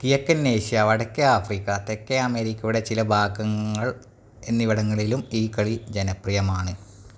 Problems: none marked